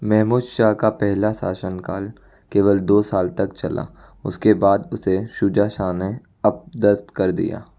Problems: background sounds at intervals